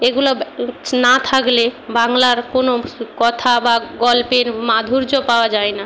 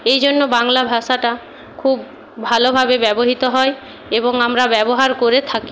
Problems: none marked